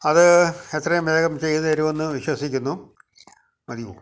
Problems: background conversations at intervals